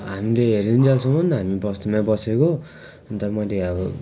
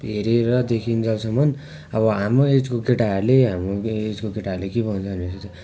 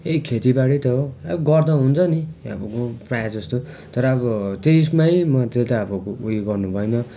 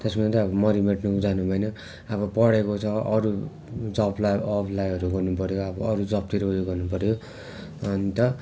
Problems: continuous background conversations